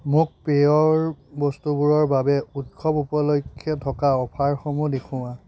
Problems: none marked